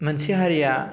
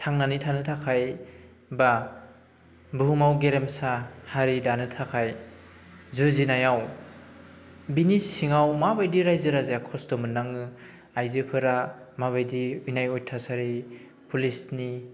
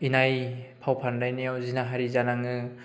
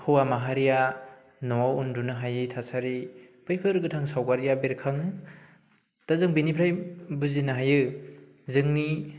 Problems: constant background noise